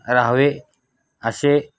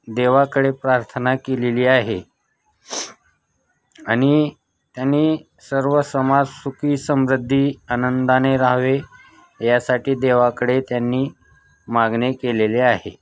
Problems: constant background noise, continuous background conversations